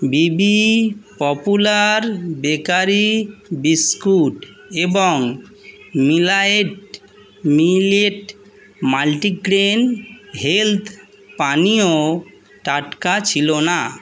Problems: none marked